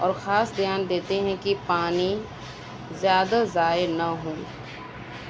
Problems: constant background noise